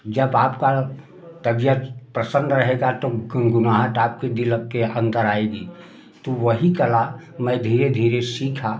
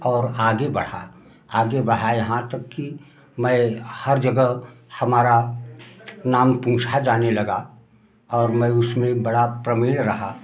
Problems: background sounds at intervals